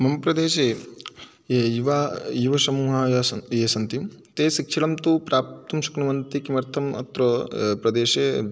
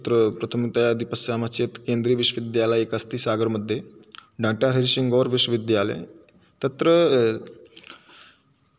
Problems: none marked